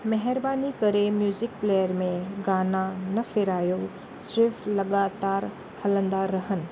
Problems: constant background noise